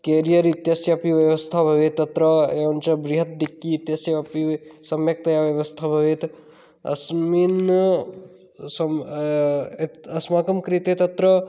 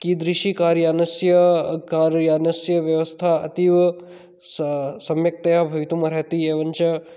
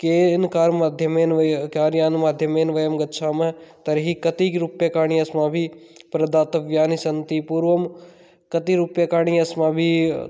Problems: none marked